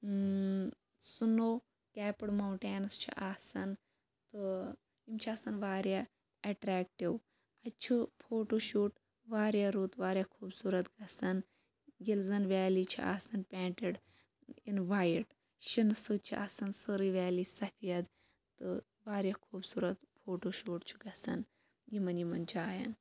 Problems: background sounds at intervals